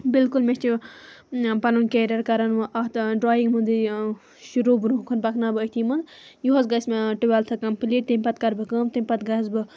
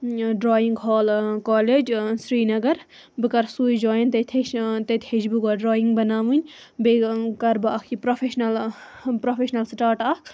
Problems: none marked